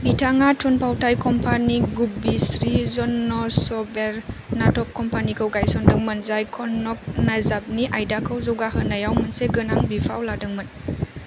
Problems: constant background noise